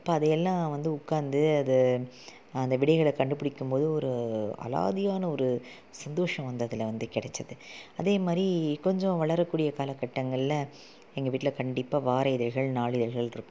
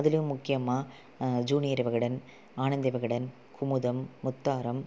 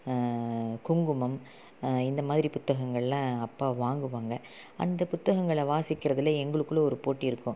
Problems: low volume